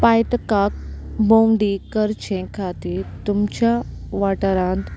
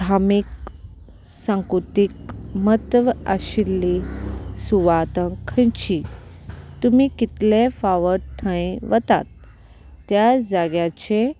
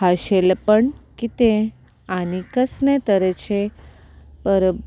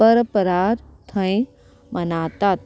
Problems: constant background noise